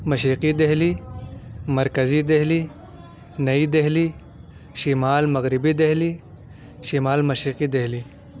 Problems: none marked